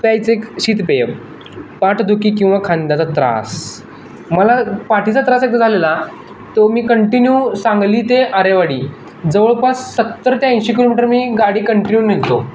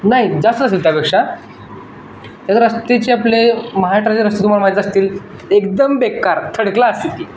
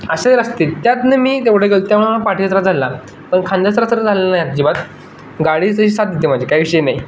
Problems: constant background noise, background conversations at intervals